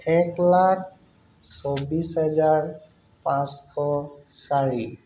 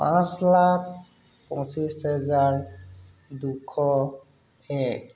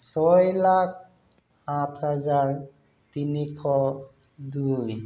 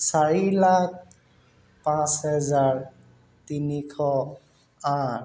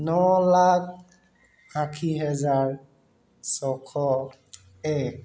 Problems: constant background noise